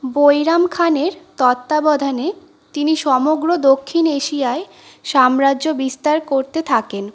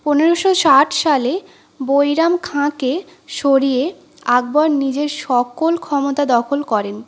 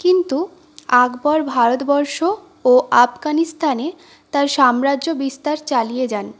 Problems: none marked